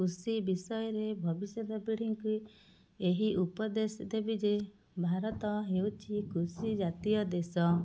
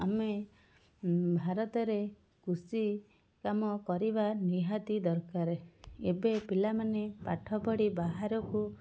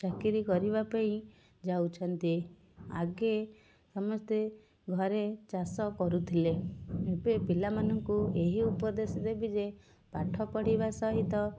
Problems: none marked